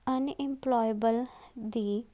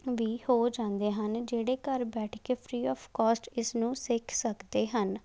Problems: background sounds at intervals